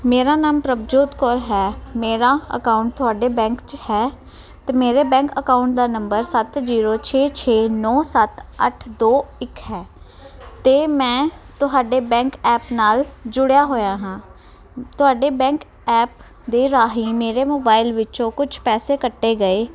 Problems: continuous background conversations